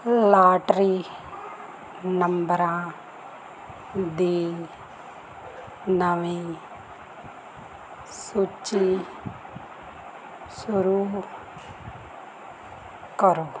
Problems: constant background noise